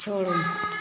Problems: none marked